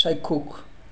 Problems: none marked